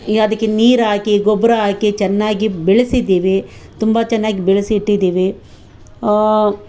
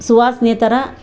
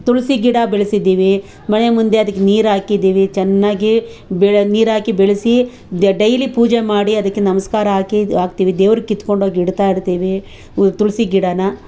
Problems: none marked